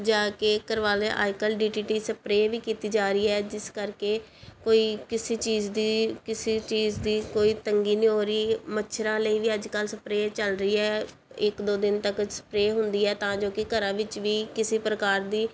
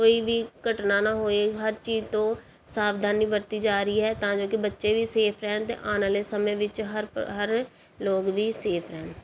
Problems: background sounds at intervals